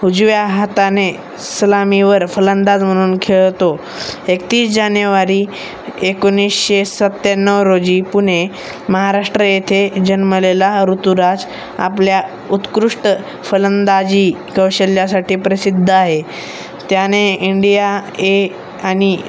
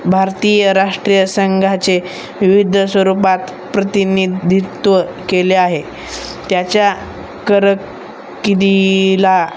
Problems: none marked